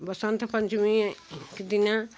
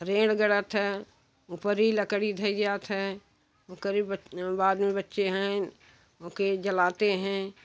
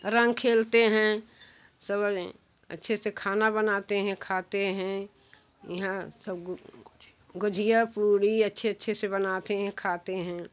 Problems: none marked